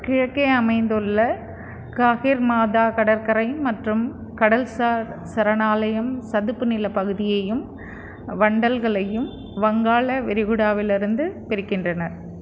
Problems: constant background noise